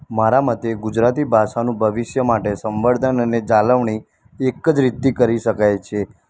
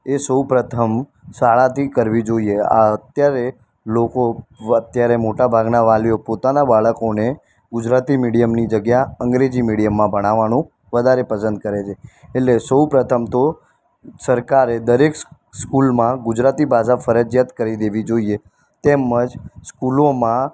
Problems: constant background noise